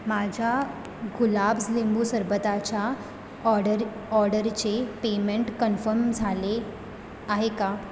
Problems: background sounds at intervals